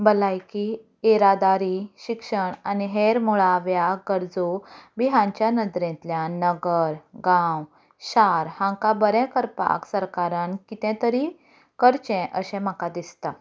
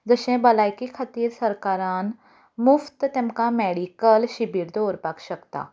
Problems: none marked